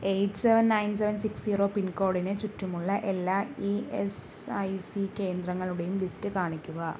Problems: none marked